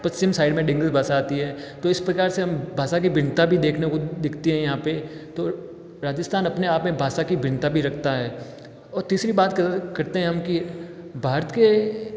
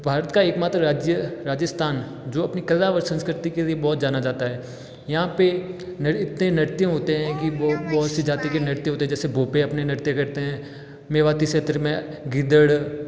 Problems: background sounds at intervals